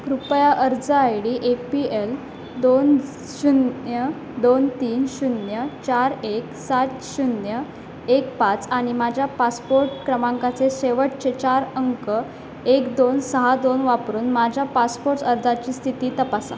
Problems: constant background noise